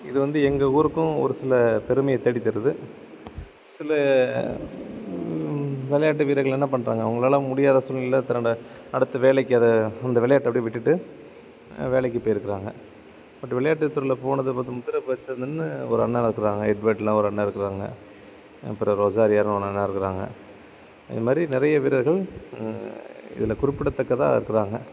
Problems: constant background noise